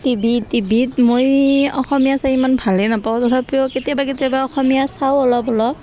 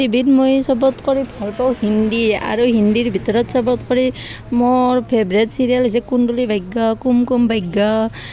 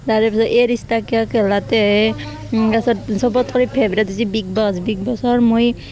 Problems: constant background noise